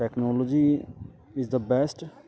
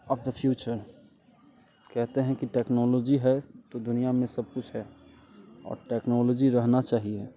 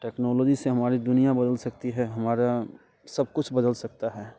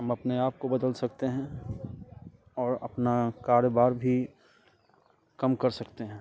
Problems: constant background noise